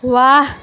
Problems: constant background noise